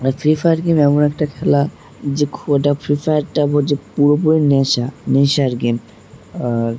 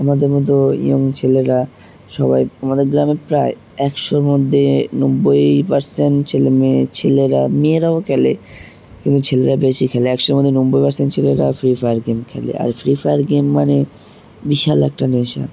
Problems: background sounds at intervals